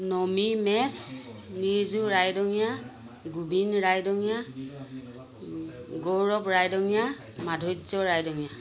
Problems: constant background noise